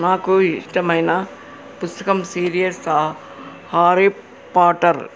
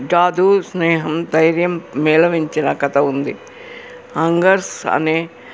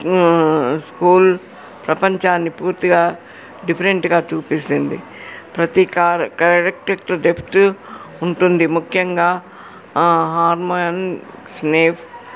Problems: background conversations at intervals